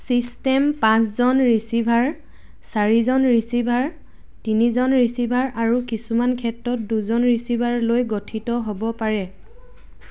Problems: background sounds at intervals